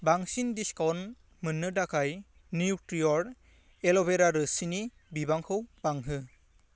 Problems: constant background noise